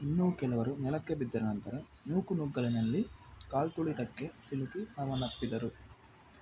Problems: constant background noise